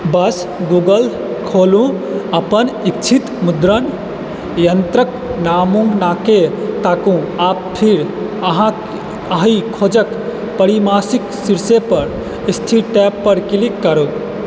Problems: constant background noise